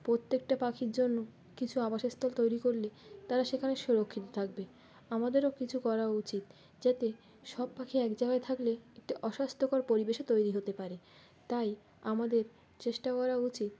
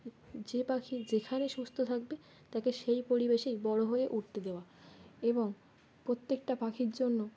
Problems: background sounds at intervals, background conversations at intervals